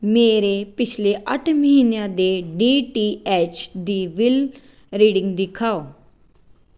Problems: background sounds at intervals